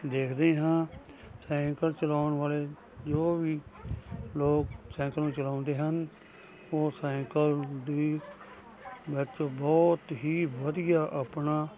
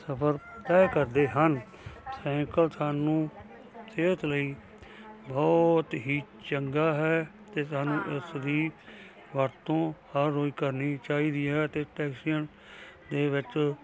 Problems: constant background noise